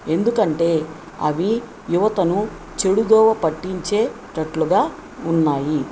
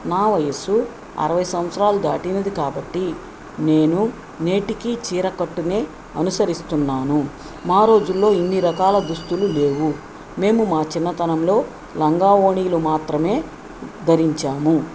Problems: none marked